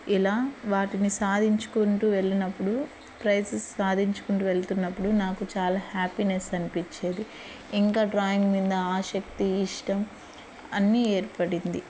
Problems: constant background noise